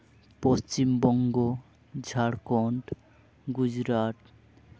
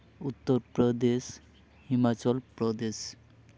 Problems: constant background noise, background conversations at intervals